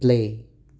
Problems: none marked